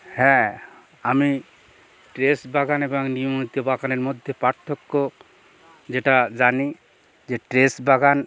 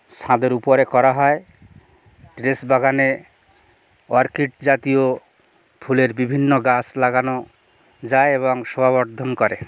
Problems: none marked